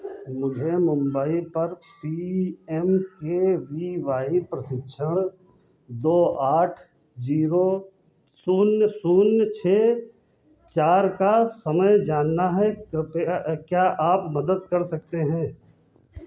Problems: background sounds at intervals